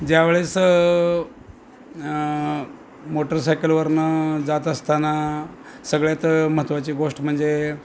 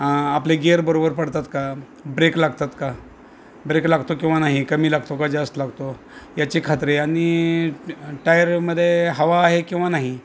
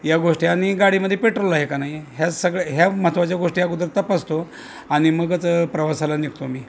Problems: constant background noise, background conversations at intervals